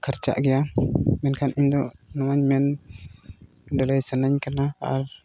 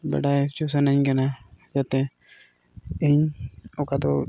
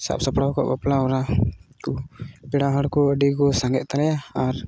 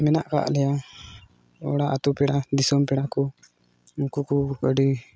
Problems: background sounds at intervals